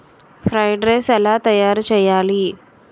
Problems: none marked